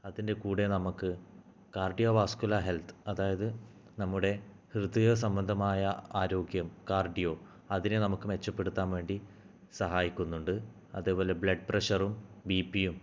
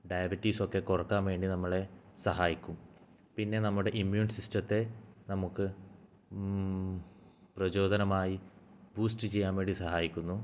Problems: low volume